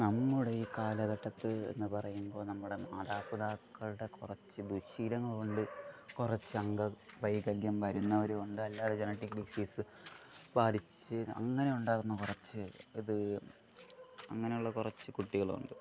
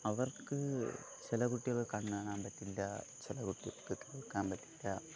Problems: low volume